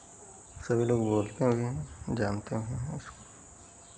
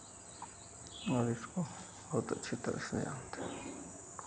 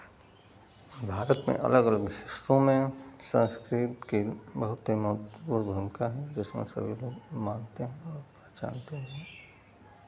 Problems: none marked